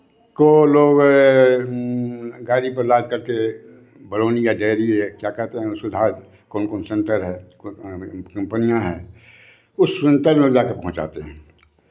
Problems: constant background noise